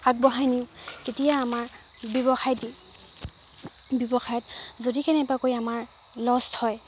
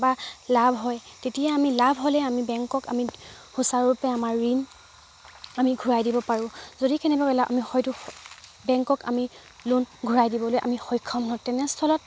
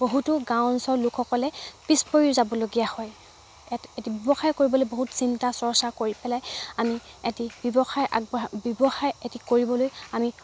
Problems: background sounds at intervals